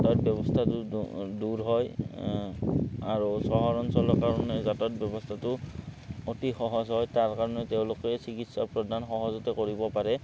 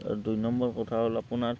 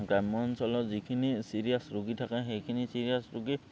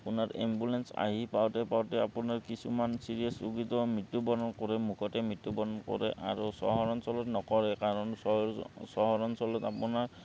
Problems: background sounds at intervals